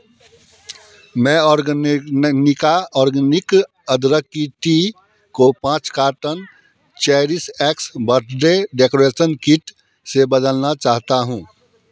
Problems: constant background noise, continuous background conversations